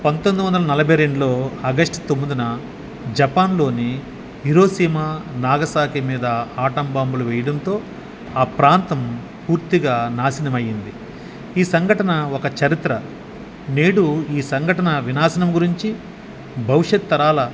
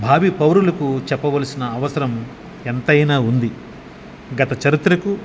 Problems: none marked